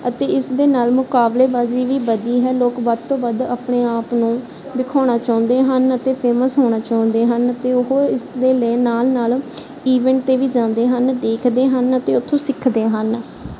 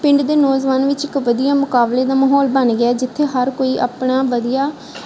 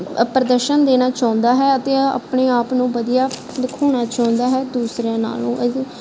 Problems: background sounds at intervals